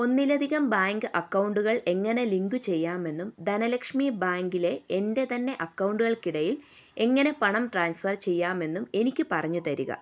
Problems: none marked